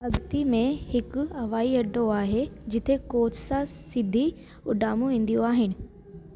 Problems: constant background noise